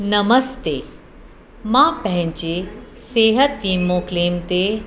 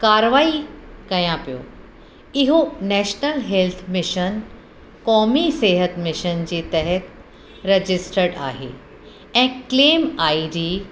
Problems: constant background noise, echo